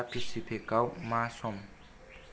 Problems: low volume